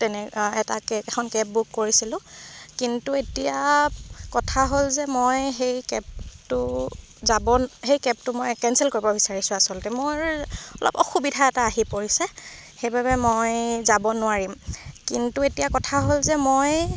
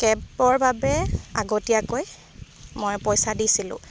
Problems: constant background noise